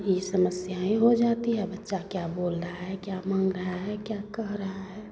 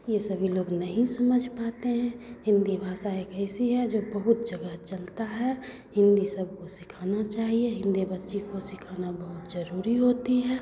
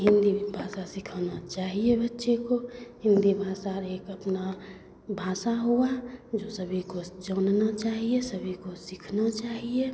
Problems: constant background noise, continuous background conversations